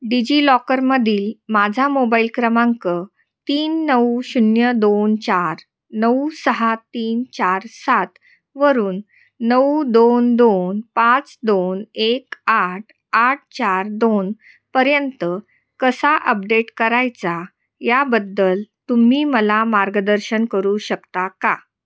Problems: constant background noise, echo